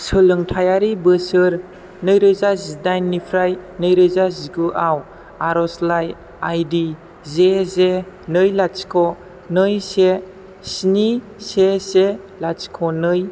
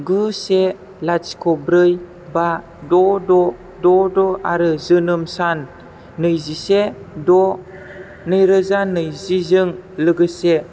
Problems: none marked